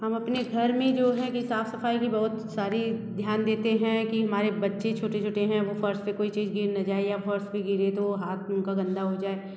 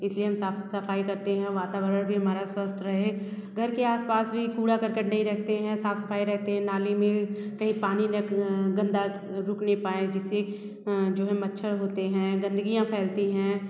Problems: none marked